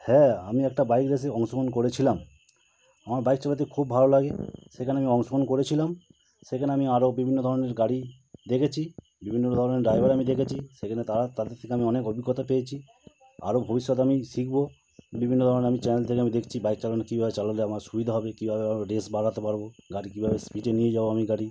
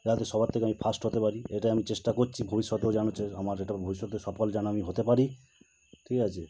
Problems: constant background noise